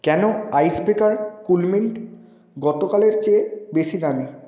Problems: none marked